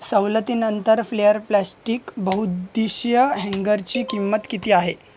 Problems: constant background noise, background conversations at intervals